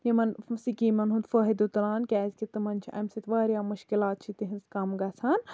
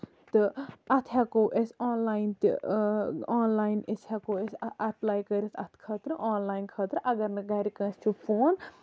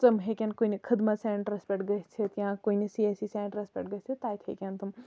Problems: none marked